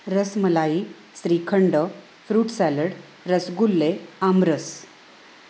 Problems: constant background noise, echo